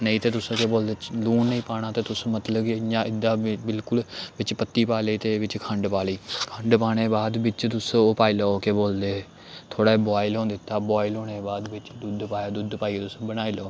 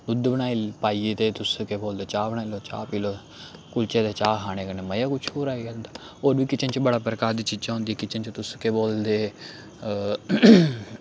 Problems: none marked